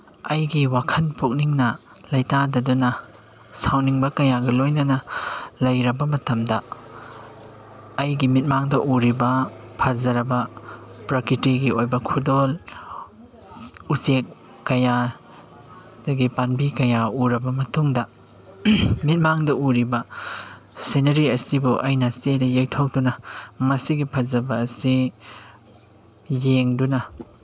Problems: background sounds at intervals